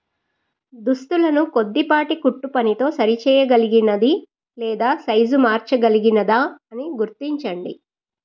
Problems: none marked